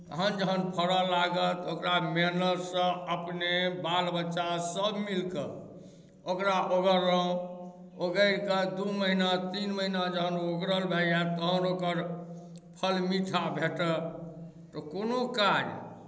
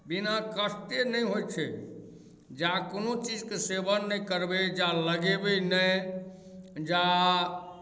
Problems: none marked